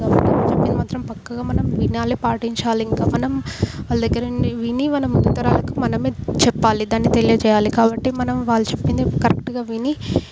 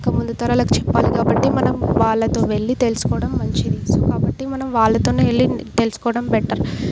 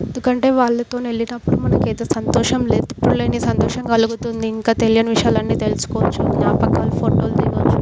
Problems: none marked